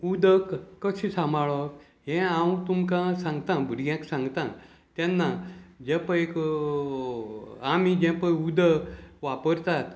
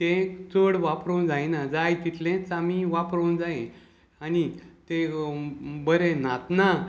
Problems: none marked